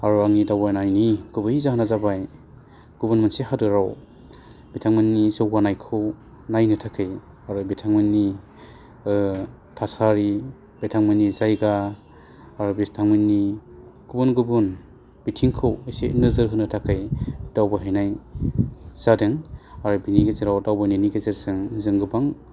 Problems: constant background noise